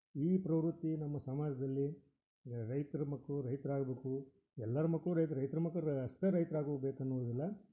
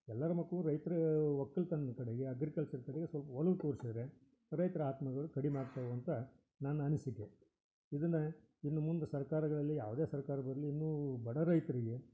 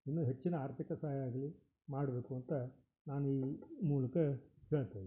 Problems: none marked